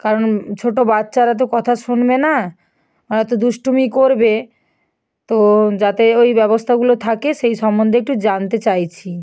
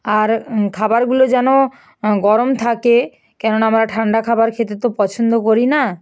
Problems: none marked